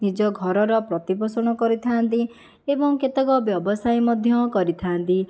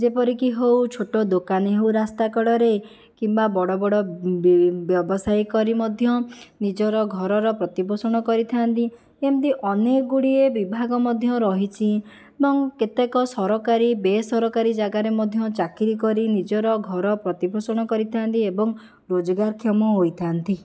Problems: none marked